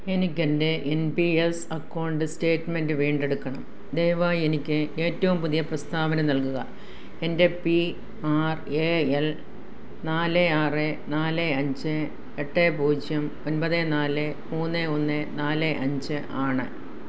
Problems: background sounds at intervals